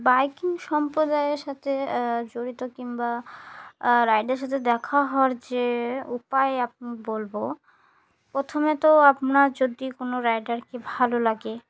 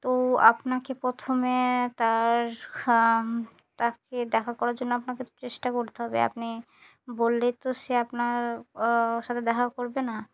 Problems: none marked